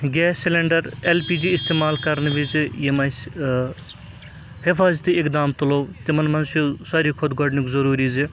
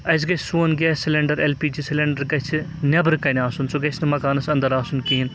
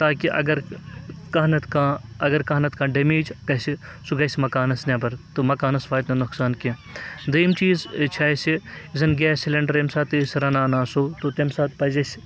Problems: background sounds at intervals